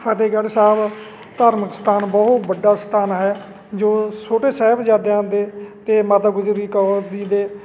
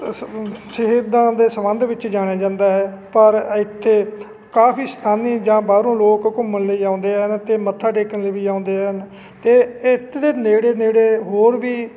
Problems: none marked